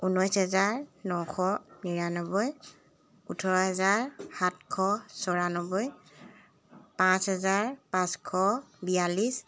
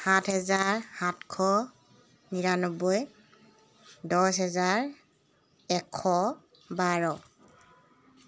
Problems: constant background noise